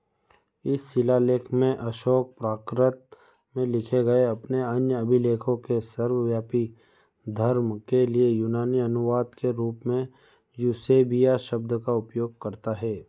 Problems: background sounds at intervals